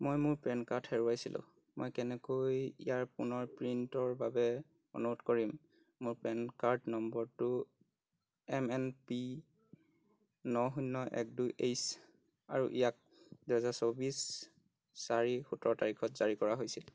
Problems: constant background noise